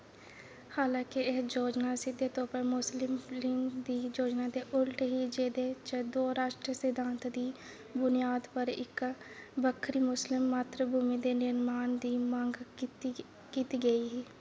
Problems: constant background noise, low volume